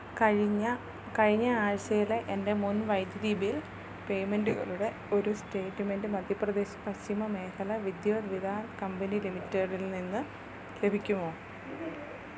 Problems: low volume